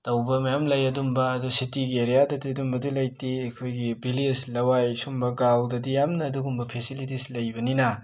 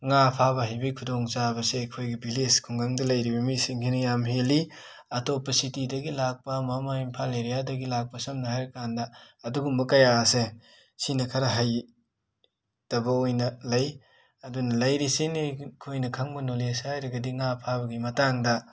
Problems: background sounds at intervals